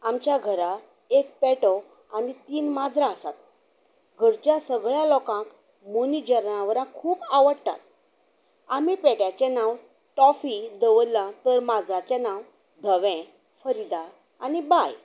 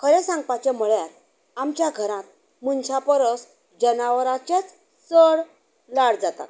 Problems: background sounds at intervals